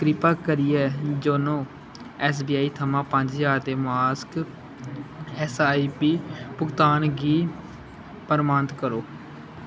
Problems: constant background noise